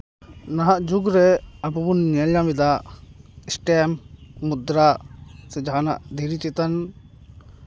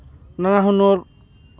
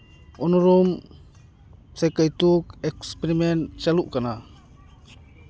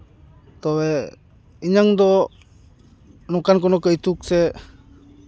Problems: background sounds at intervals, background conversations at intervals